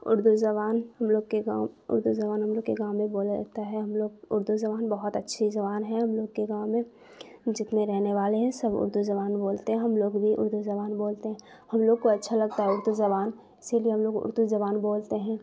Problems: constant background noise